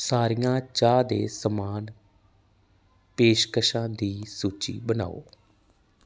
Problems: background sounds at intervals